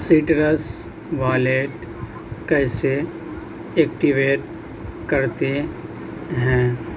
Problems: constant background noise